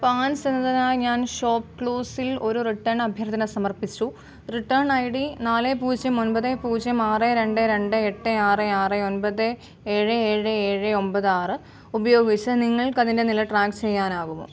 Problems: background sounds at intervals